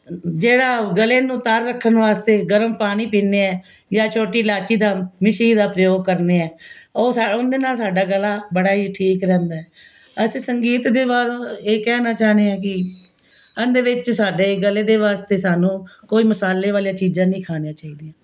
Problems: constant background noise